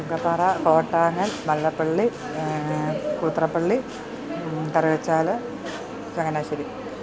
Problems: constant background noise